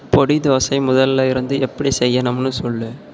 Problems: constant background noise